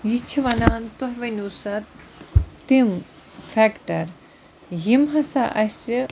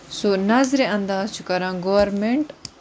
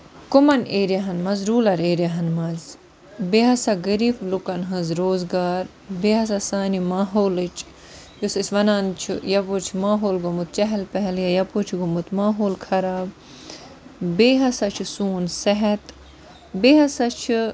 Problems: constant background noise